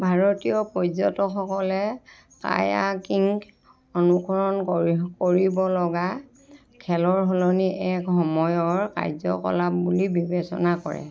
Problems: continuous background conversations